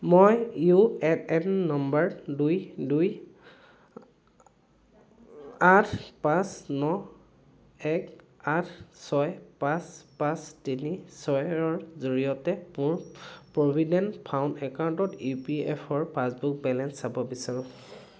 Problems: background conversations at intervals